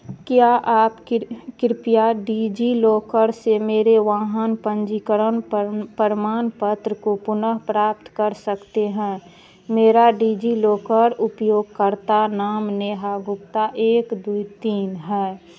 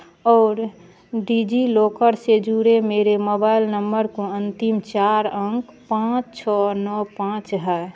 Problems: constant background noise